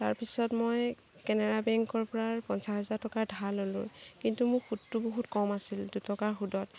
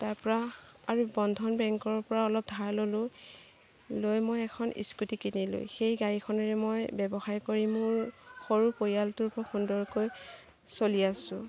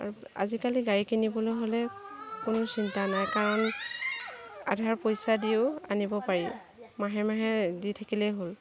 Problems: constant background noise, background conversations at intervals